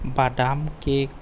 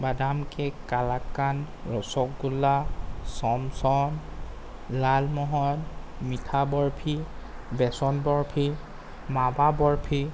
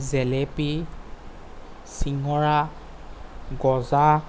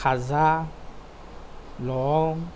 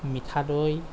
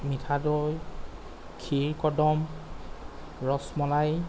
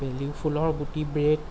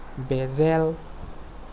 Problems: constant background noise